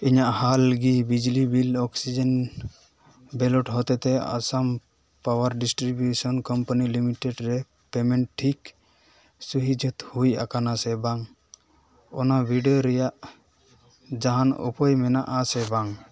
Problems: background conversations at intervals